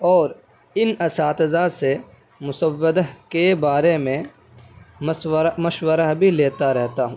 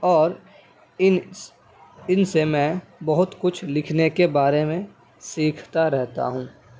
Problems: none marked